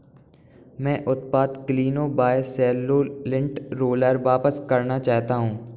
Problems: background sounds at intervals